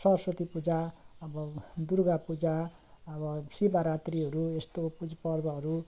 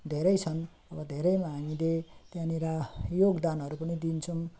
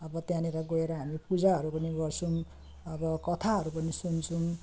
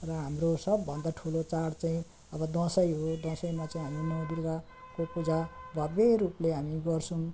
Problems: constant background noise